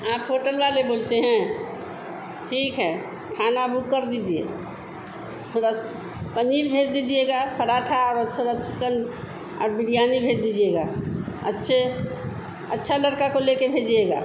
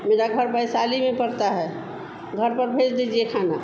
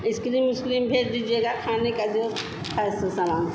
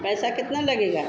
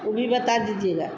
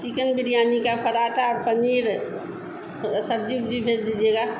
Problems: constant background noise